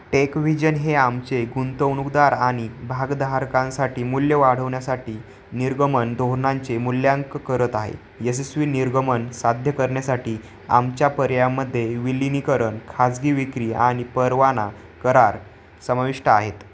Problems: constant background noise